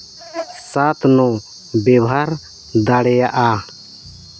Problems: constant background noise